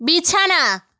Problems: constant background noise